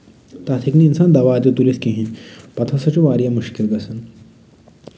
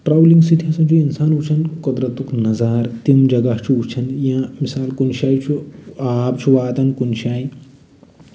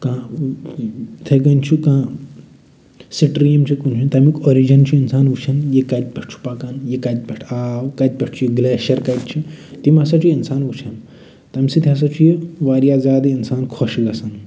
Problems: none marked